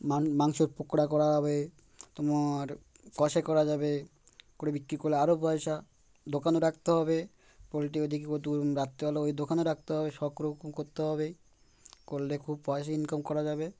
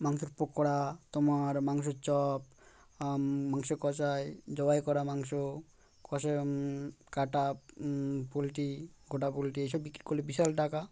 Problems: constant background noise